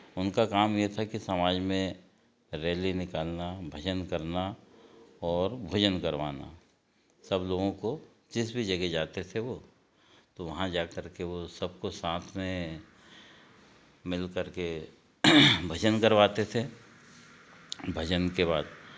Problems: none marked